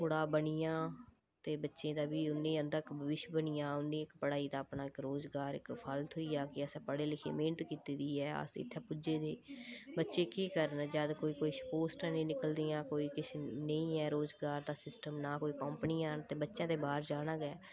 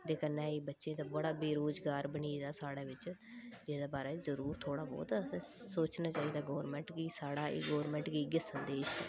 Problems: low volume